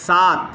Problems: none marked